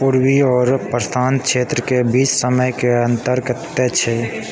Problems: background conversations at intervals